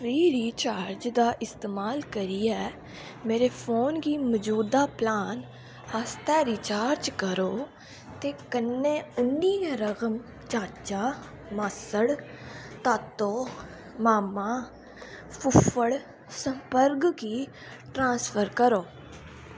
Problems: constant background noise